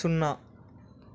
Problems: constant background noise